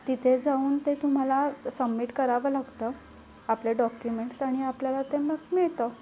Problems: background sounds at intervals, low volume